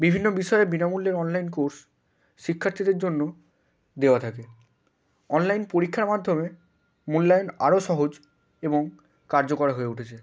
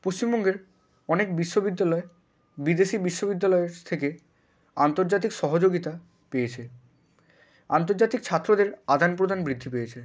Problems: background sounds at intervals